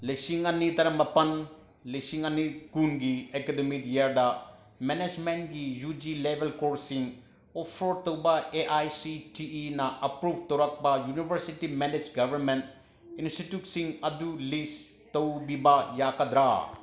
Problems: background sounds at intervals